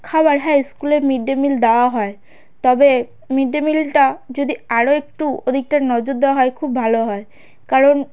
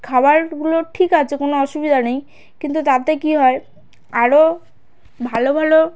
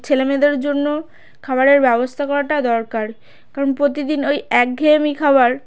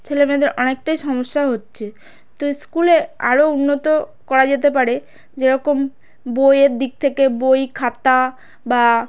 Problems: constant background noise